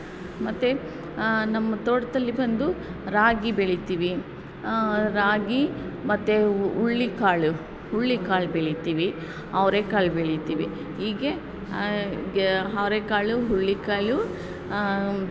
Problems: constant background noise